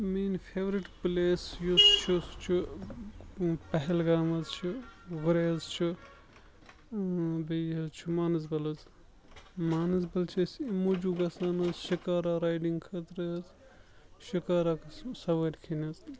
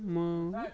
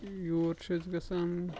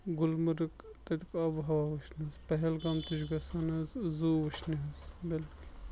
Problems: constant background noise, background conversations at intervals, low volume